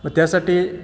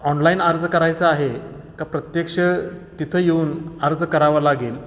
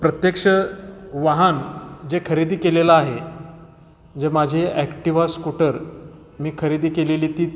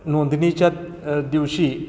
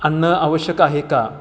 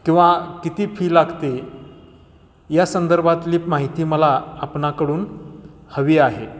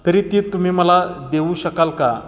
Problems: background sounds at intervals